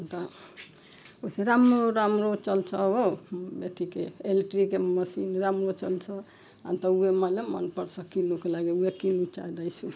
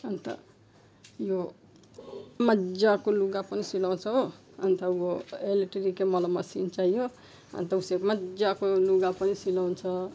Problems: background sounds at intervals